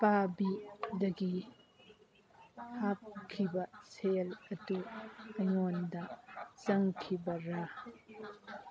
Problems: background sounds at intervals